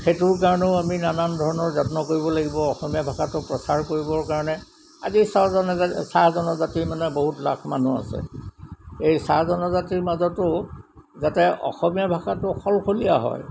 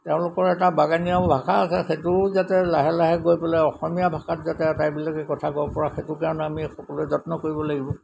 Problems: constant background noise